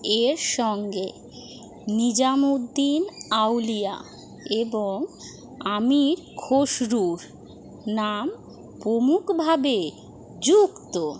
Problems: none marked